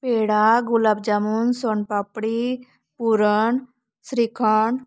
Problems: background sounds at intervals